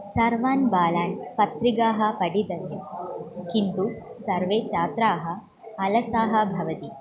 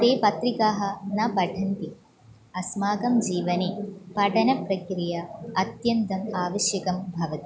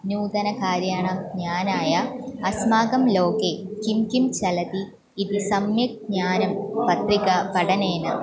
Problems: continuous background conversations